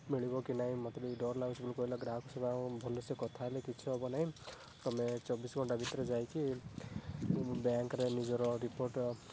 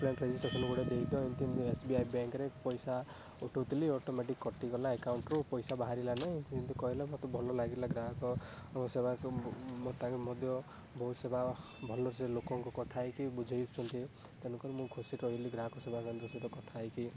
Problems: background sounds at intervals, low volume